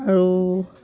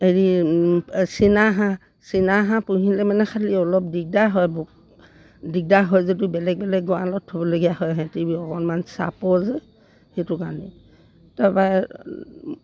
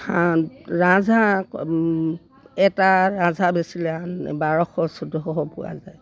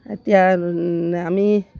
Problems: none marked